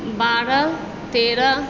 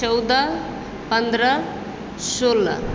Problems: none marked